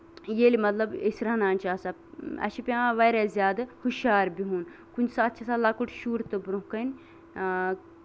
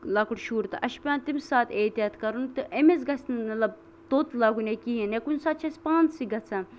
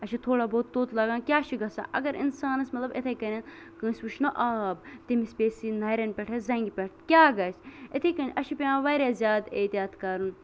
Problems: constant background noise